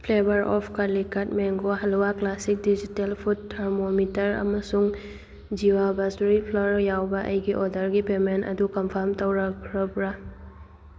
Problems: none marked